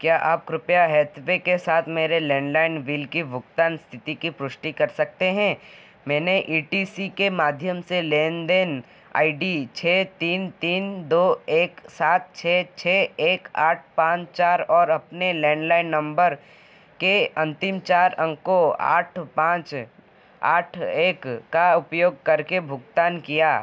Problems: constant background noise